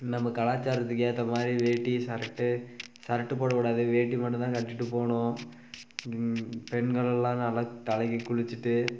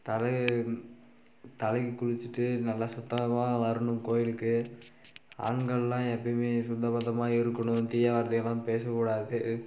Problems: background sounds at intervals